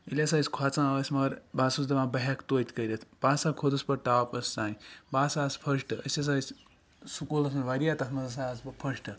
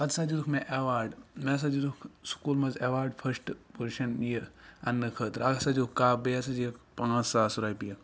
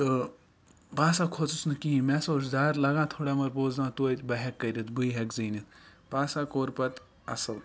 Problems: background sounds at intervals